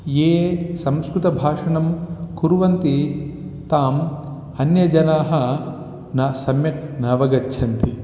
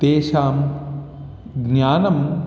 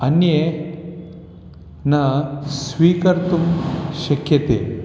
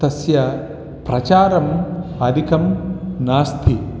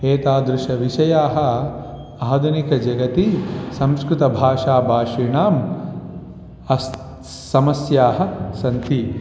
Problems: constant background noise, continuous background conversations